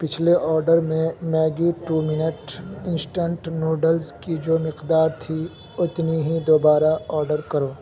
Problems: constant background noise, low volume